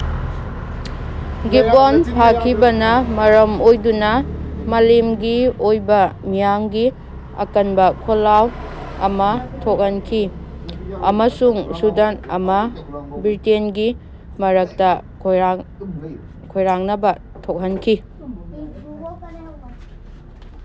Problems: background sounds at intervals, background conversations at intervals